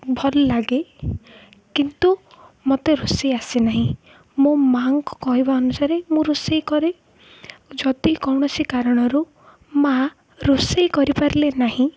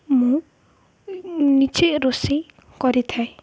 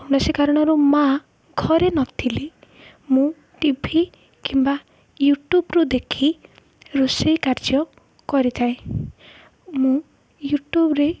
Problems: none marked